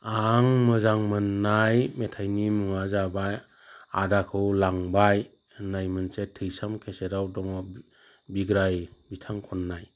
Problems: constant background noise